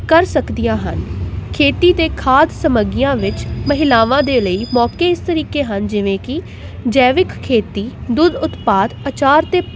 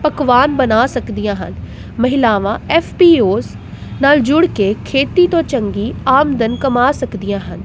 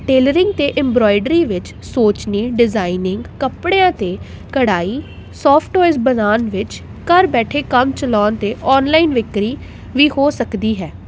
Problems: none marked